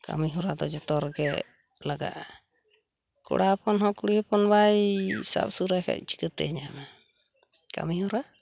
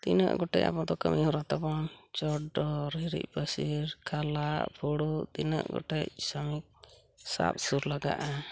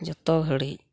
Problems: background sounds at intervals